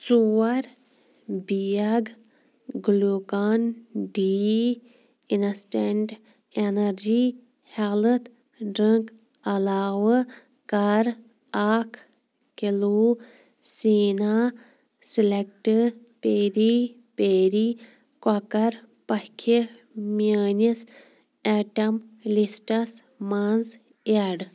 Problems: background sounds at intervals